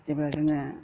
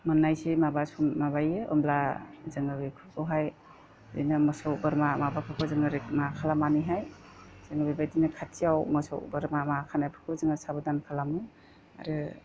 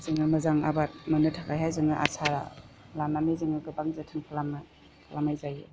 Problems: constant background noise